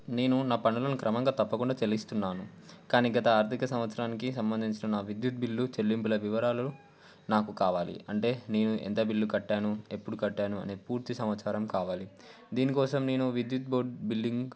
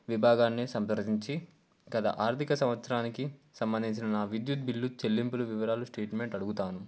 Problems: none marked